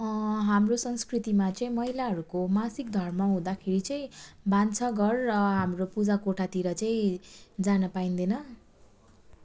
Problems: none marked